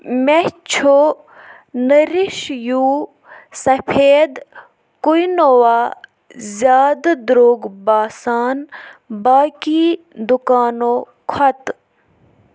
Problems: background sounds at intervals